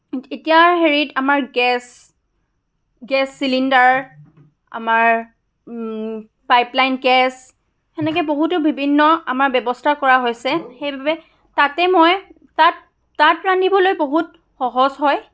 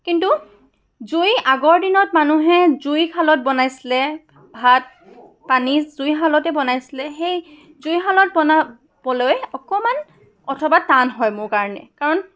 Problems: background sounds at intervals